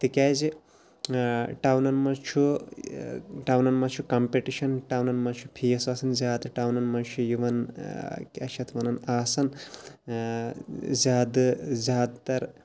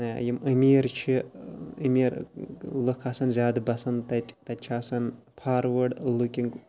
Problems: background sounds at intervals